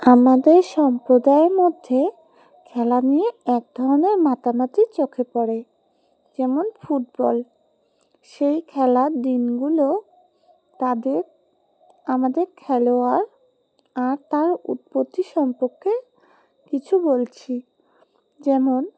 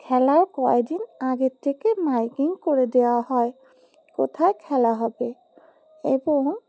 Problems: background sounds at intervals